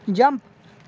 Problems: none marked